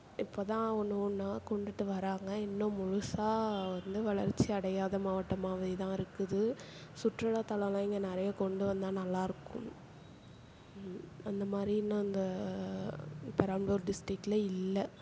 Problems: none marked